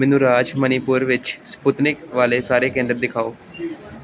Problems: constant background noise